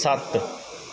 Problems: none marked